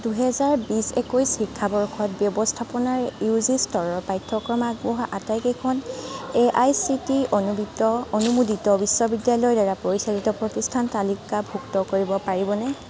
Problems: continuous background conversations